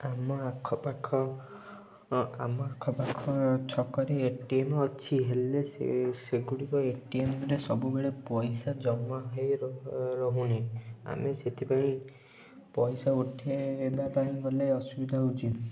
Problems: low volume